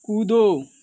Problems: none marked